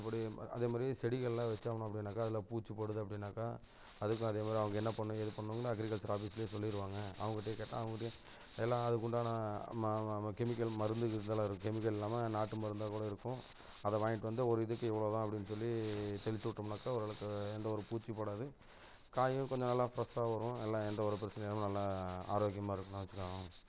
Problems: constant background noise